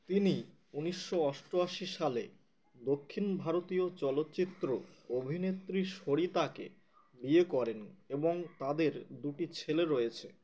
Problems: none marked